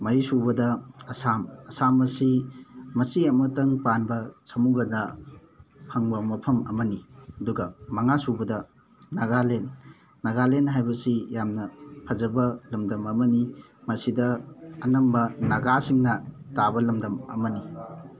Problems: constant background noise, background conversations at intervals